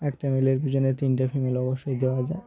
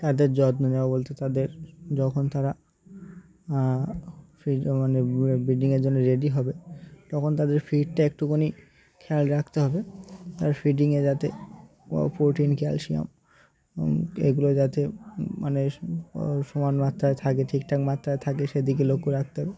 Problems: none marked